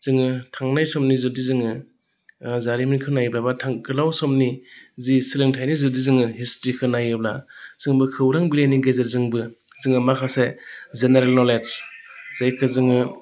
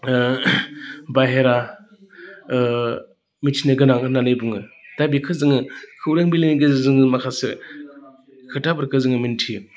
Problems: constant background noise